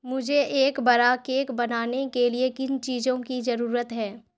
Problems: none marked